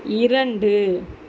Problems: constant background noise